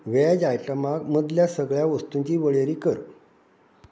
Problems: none marked